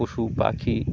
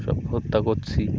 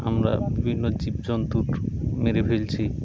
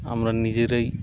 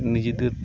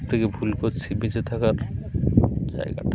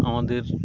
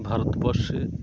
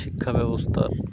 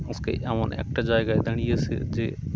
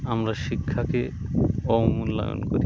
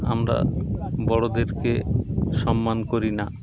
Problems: constant background noise, continuous background conversations